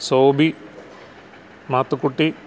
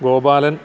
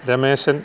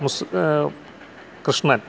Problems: constant background noise